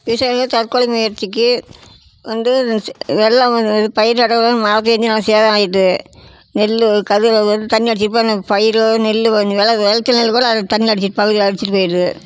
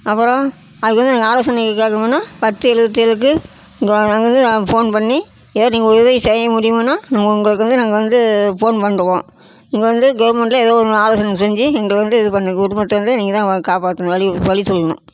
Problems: constant background noise, background conversations at intervals